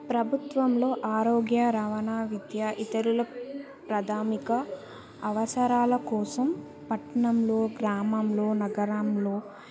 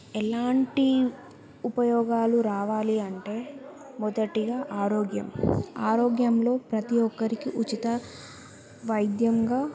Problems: background sounds at intervals